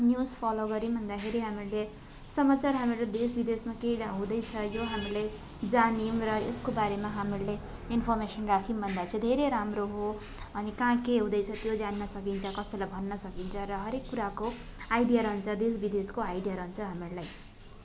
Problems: constant background noise, continuous background conversations